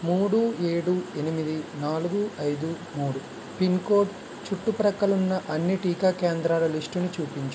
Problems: constant background noise